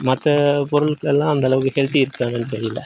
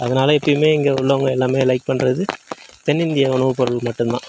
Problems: background sounds at intervals